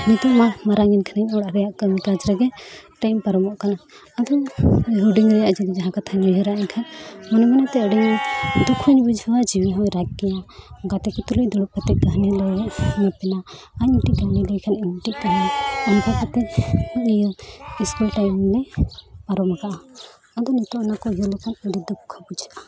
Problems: constant background noise